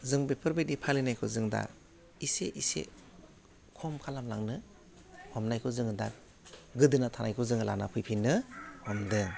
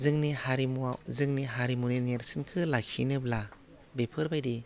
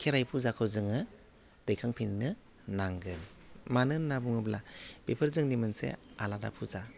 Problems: low volume